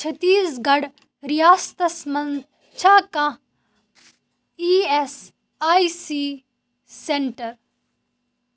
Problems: background sounds at intervals